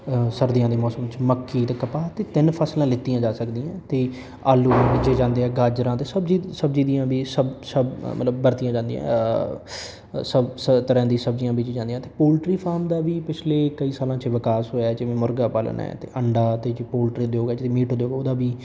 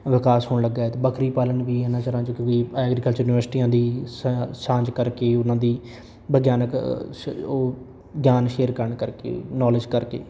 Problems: background conversations at intervals